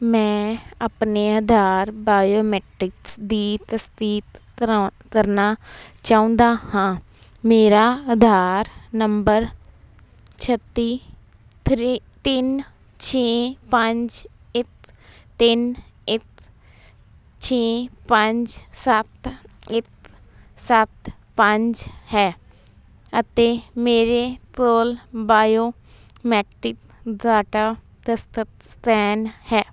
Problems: constant background noise